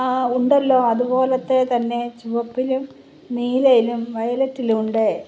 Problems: none marked